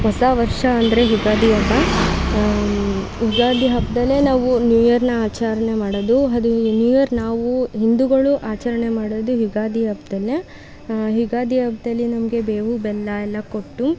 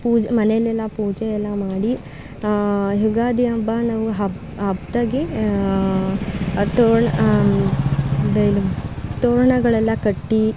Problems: background sounds at intervals